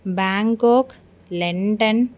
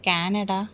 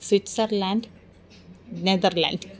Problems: none marked